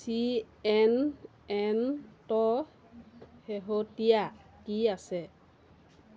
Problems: constant background noise